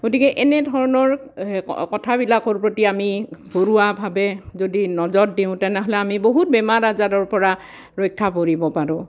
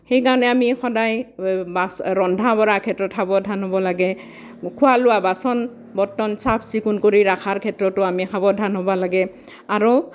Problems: none marked